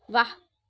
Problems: none marked